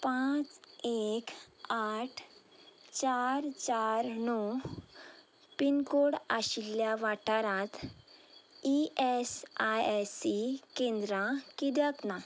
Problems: constant background noise